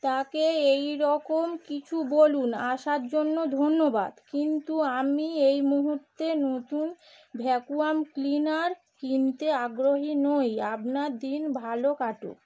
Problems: background sounds at intervals